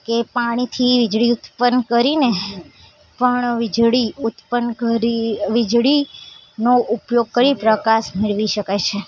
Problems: constant background noise, background conversations at intervals